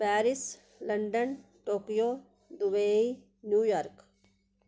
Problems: none marked